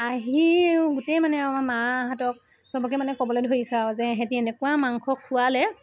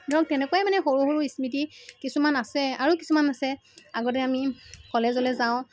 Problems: constant background noise